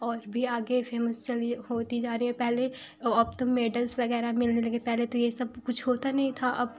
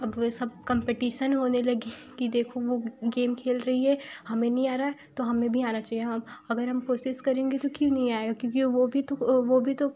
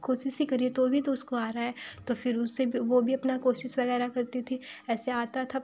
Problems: background sounds at intervals